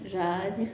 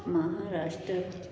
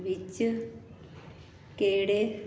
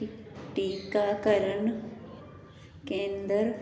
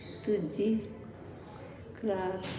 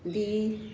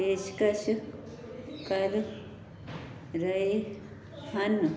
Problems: constant background noise